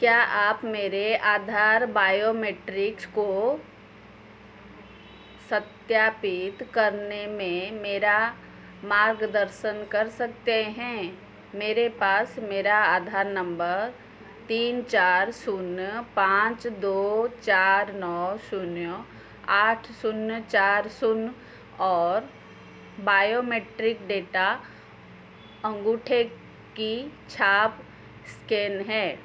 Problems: constant background noise